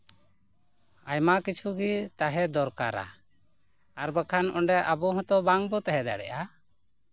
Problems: constant background noise, background conversations at intervals